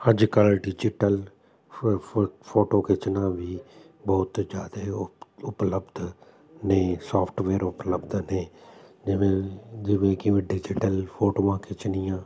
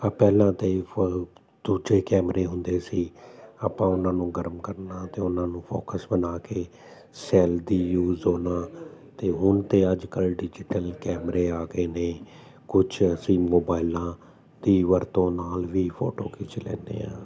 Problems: constant background noise